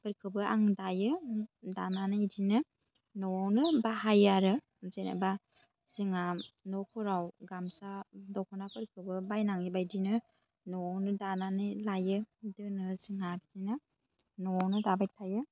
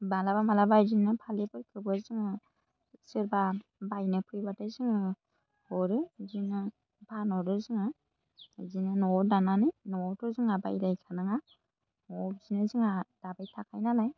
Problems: low volume